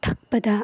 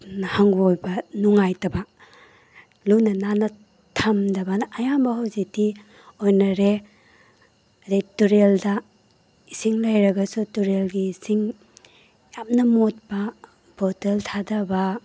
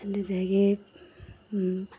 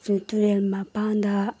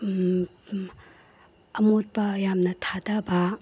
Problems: none marked